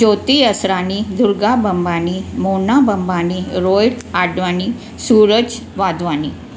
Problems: constant background noise